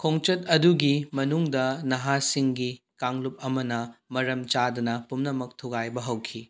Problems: background conversations at intervals